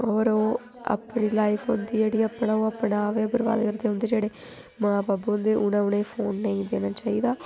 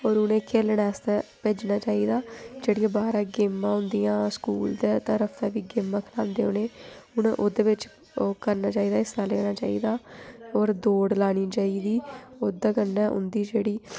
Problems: background sounds at intervals